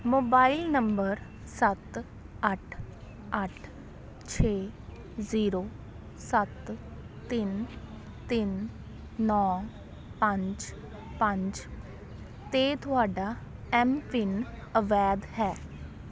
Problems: continuous background conversations